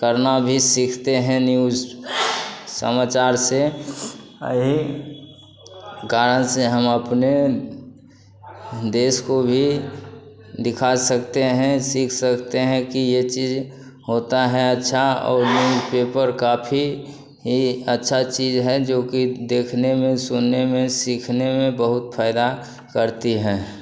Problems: none marked